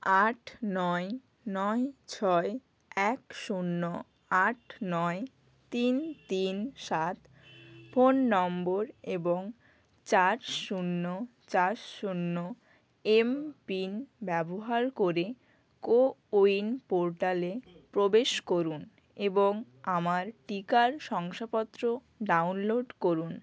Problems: constant background noise